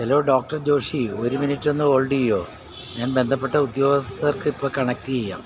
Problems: constant background noise